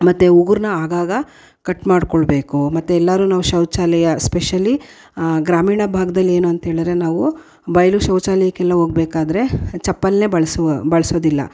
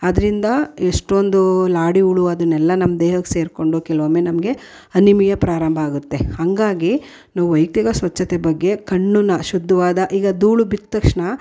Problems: none marked